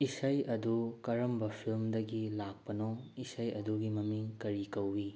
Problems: low volume